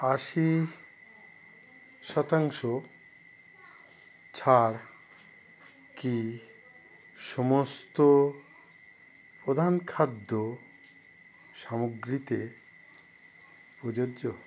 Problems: constant background noise